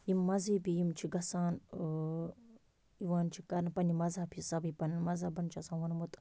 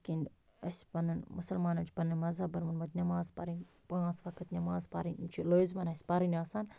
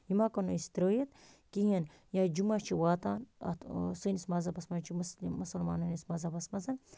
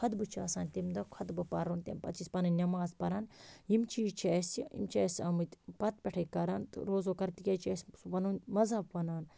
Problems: none marked